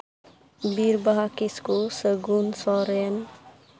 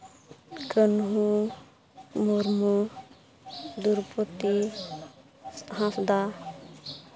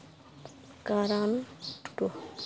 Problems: constant background noise, background conversations at intervals